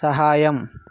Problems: constant background noise